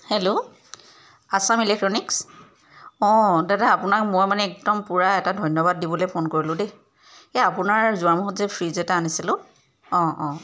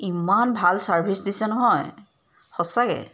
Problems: background sounds at intervals